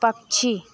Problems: constant background noise